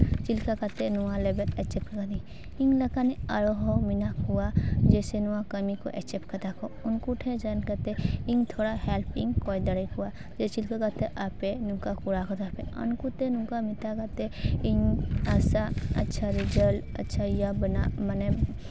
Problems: none marked